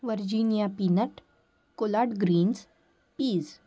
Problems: none marked